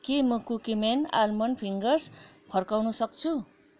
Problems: constant background noise